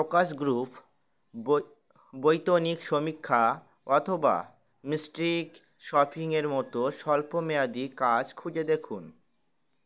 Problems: constant background noise